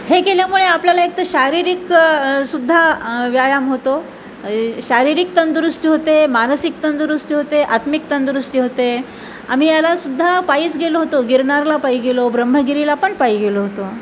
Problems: constant background noise